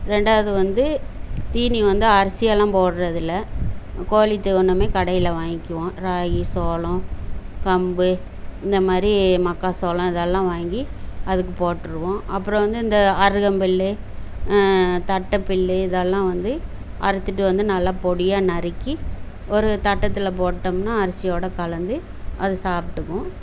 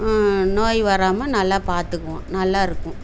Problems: none marked